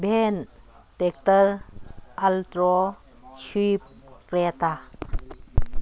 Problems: none marked